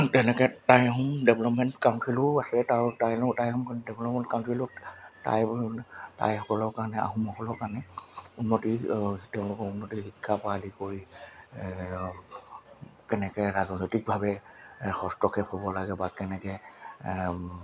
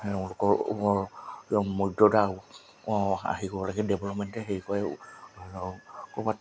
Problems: constant background noise